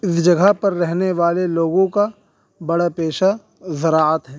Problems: none marked